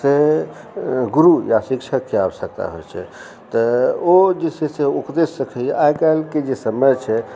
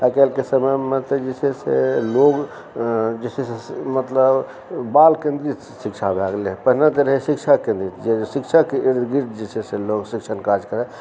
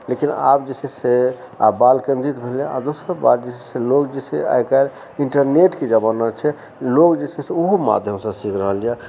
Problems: background conversations at intervals